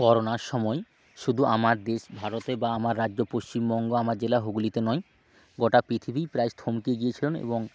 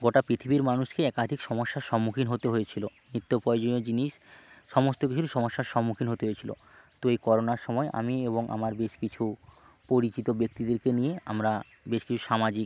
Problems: background sounds at intervals, background conversations at intervals